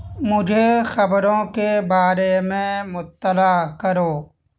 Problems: constant background noise